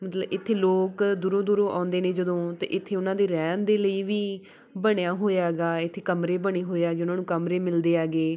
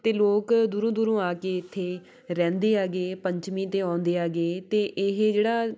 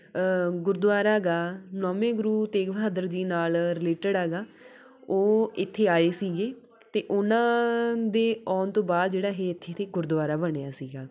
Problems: background conversations at intervals